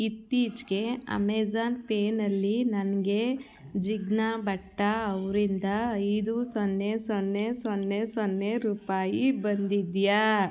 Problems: none marked